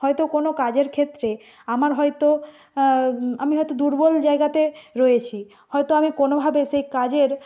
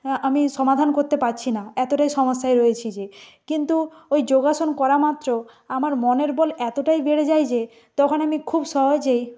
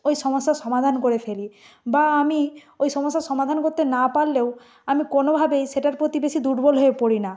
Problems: background sounds at intervals